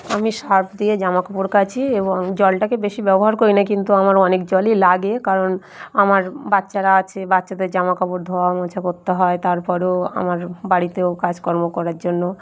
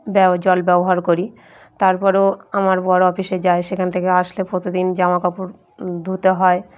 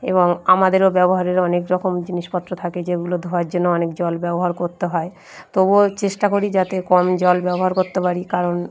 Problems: background sounds at intervals